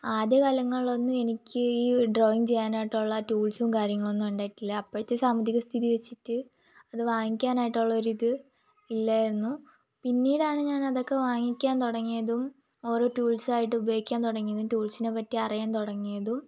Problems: constant background noise, low volume